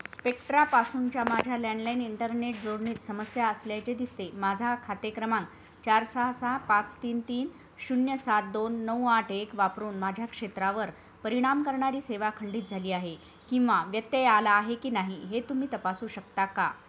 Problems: background sounds at intervals